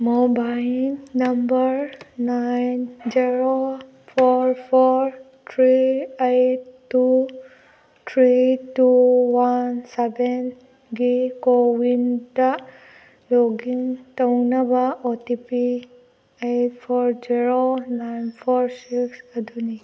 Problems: background sounds at intervals